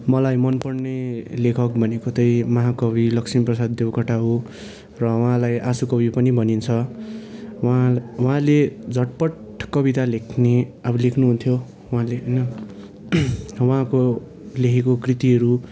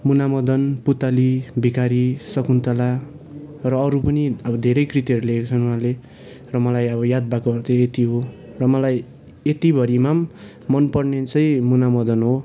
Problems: none marked